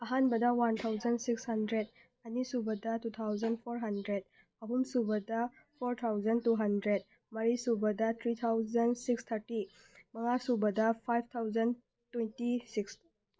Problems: none marked